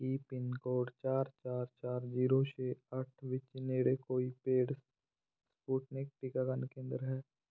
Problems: none marked